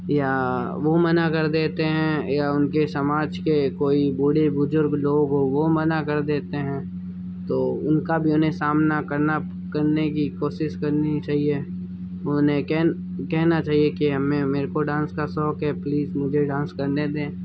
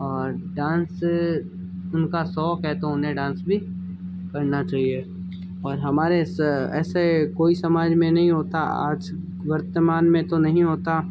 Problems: background sounds at intervals